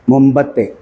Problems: background sounds at intervals